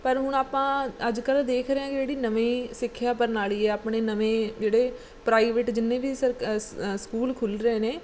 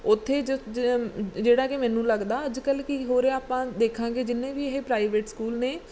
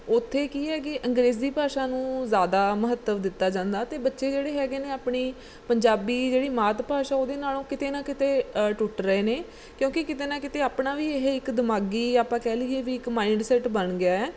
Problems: background sounds at intervals